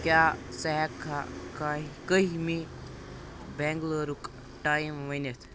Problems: constant background noise